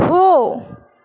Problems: none marked